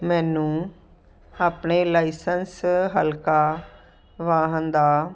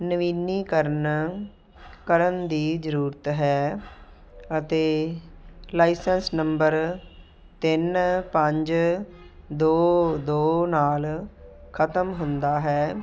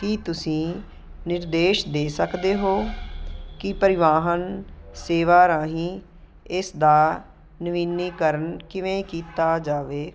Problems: none marked